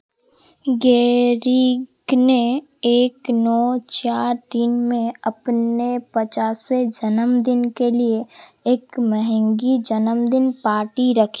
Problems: constant background noise